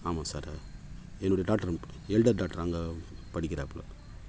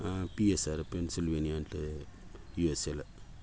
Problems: constant background noise